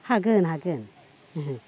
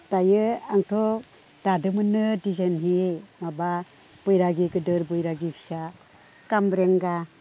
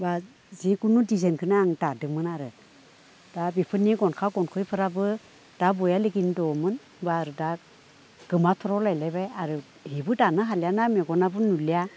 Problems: none marked